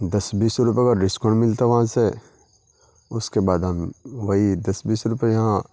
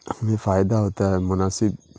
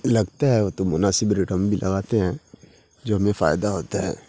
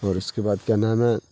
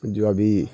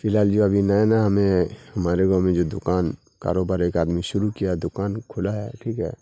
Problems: constant background noise, low volume